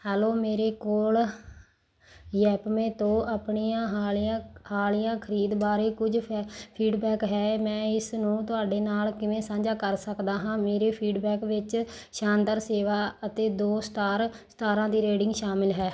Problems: background sounds at intervals